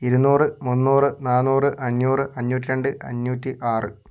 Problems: none marked